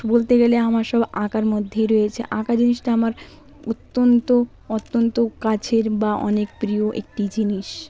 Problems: background conversations at intervals